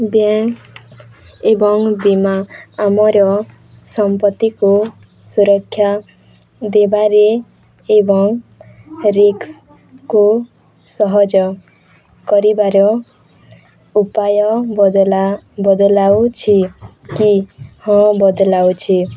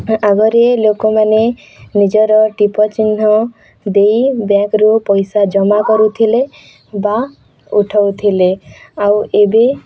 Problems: background sounds at intervals, continuous background conversations